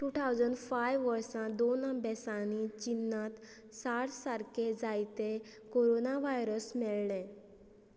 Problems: none marked